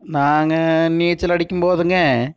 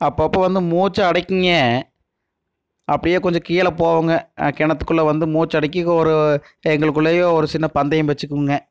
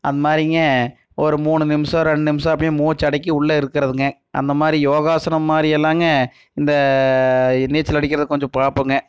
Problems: none marked